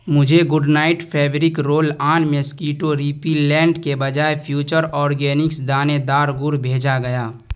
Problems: constant background noise